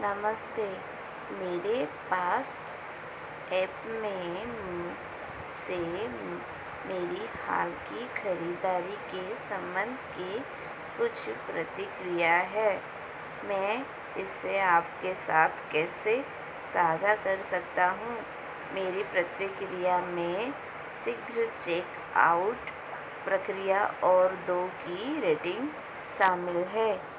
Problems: constant background noise